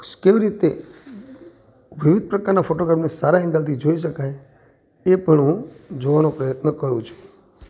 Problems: constant background noise